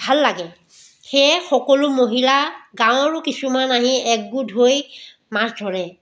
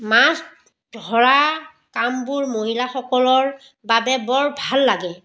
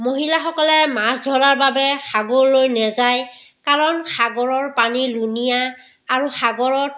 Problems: none marked